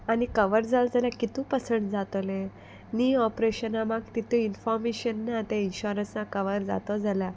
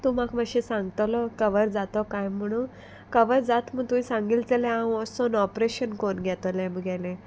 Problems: constant background noise